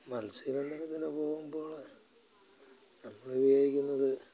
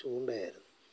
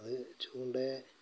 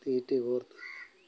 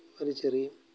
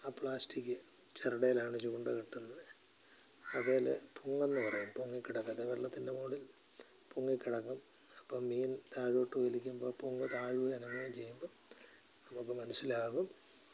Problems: low volume